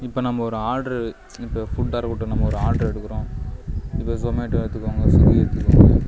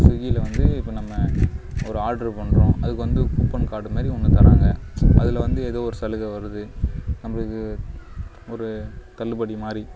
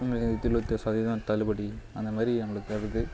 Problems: low volume